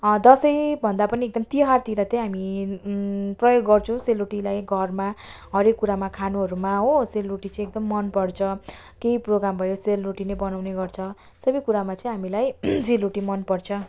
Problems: background sounds at intervals